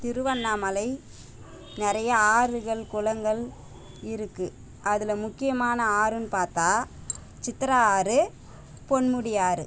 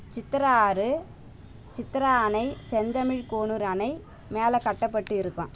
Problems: constant background noise